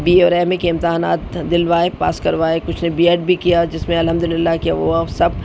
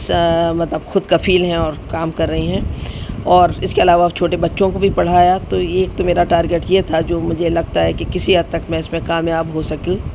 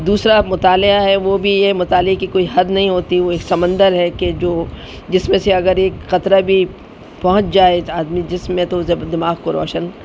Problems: constant background noise